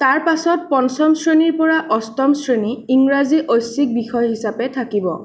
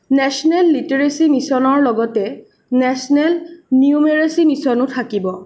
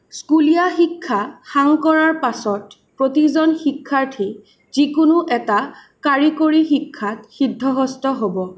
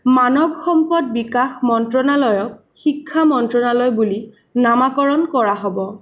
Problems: none marked